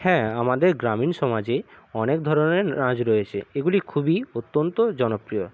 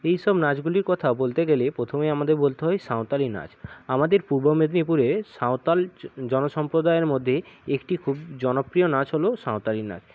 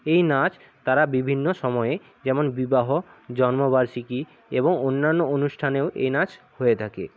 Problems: background sounds at intervals